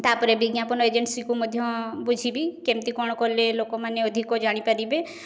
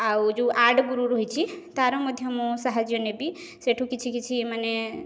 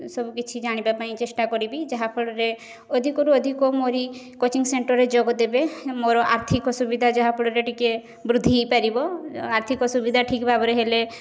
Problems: none marked